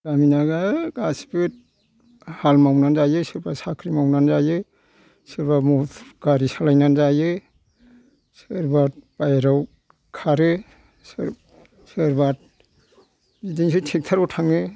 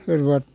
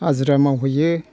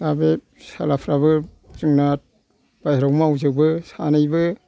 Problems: background sounds at intervals